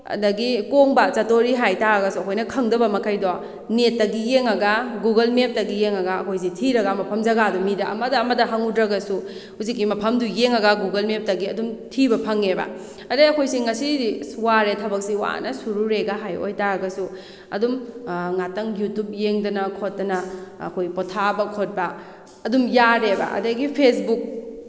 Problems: none marked